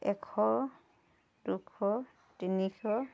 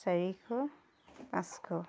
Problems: none marked